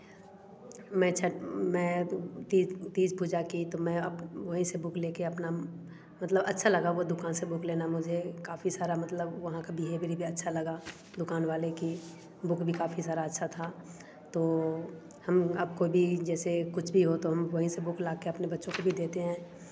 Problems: constant background noise